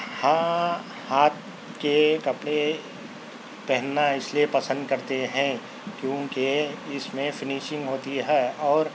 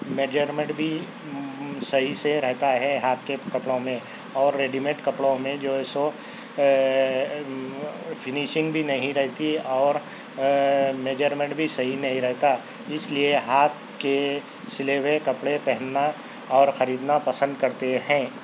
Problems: constant background noise